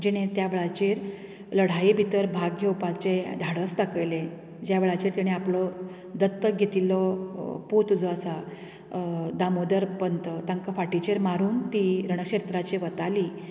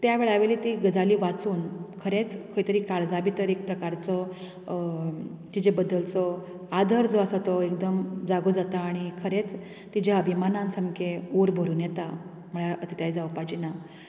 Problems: background sounds at intervals